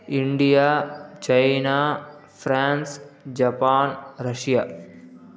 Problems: background sounds at intervals